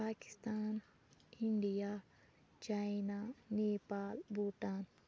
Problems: constant background noise